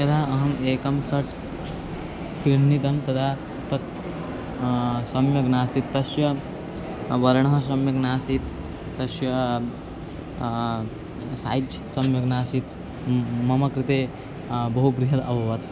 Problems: constant background noise